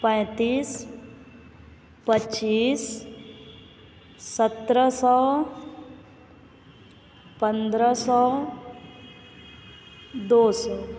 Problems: constant background noise